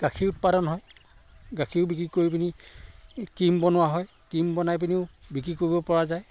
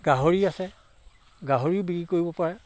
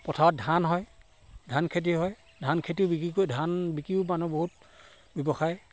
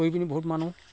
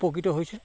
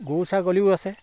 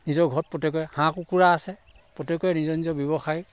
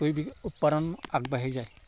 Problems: constant background noise